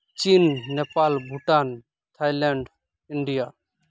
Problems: none marked